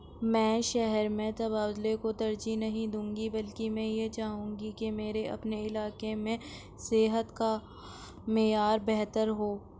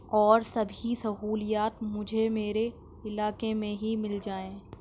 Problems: none marked